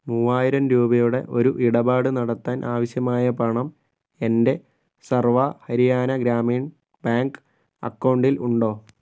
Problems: none marked